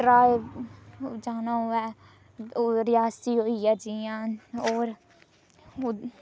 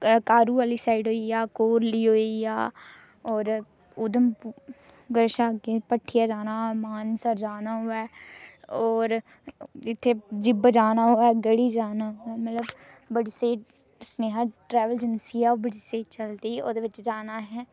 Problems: none marked